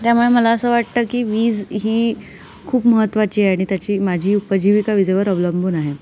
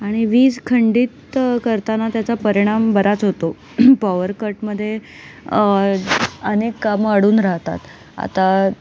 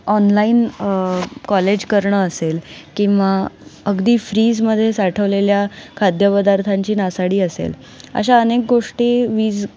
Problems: none marked